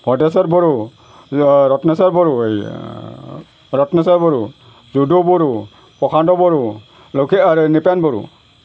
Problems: none marked